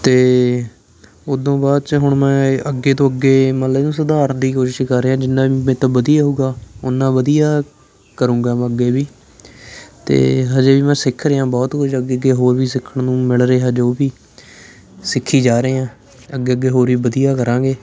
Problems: background sounds at intervals, continuous background conversations